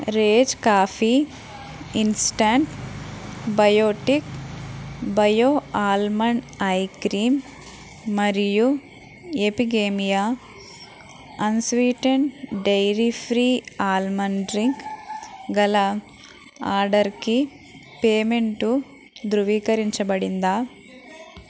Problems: constant background noise, background conversations at intervals